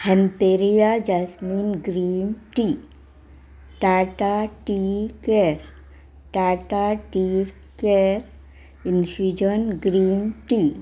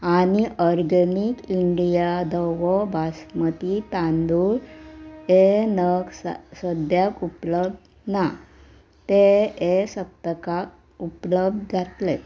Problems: background sounds at intervals